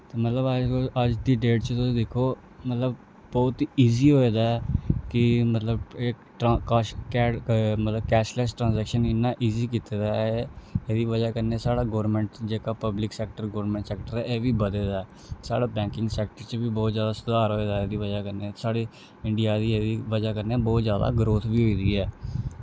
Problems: low volume